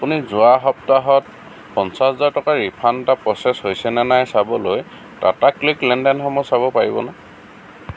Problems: constant background noise